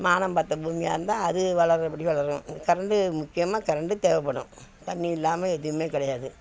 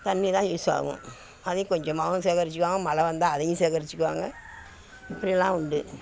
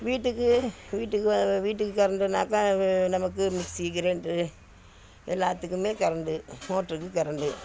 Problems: constant background noise, background conversations at intervals